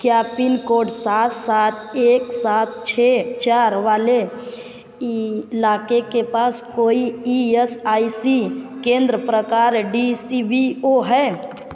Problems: none marked